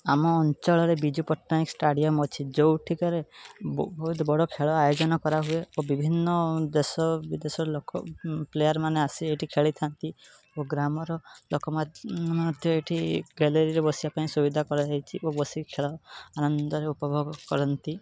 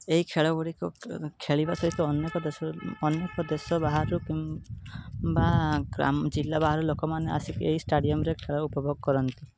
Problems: background sounds at intervals